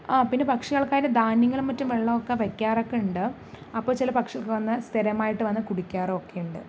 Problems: none marked